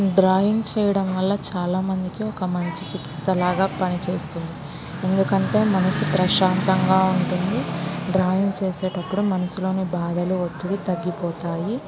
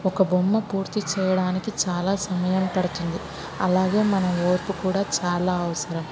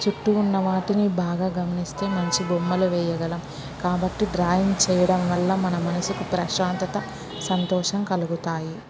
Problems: constant background noise